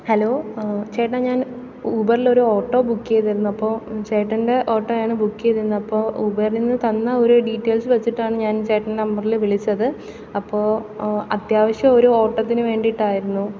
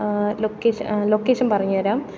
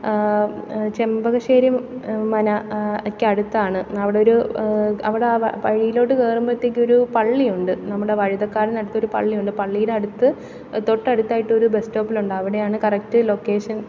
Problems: background sounds at intervals